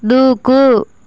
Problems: constant background noise